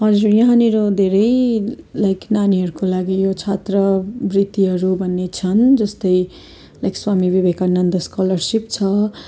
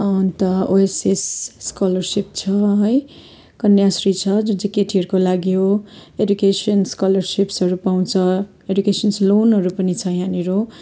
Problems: continuous background conversations